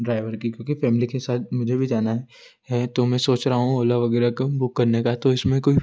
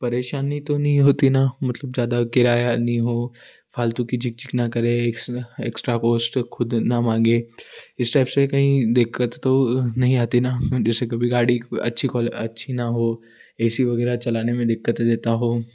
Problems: constant background noise